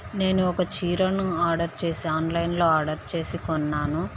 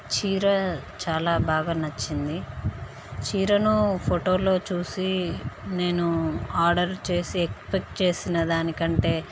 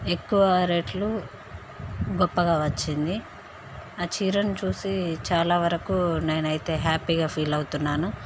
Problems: constant background noise